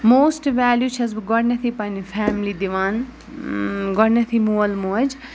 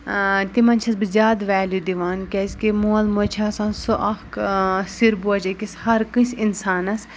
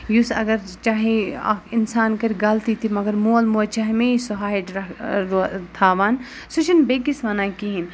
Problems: none marked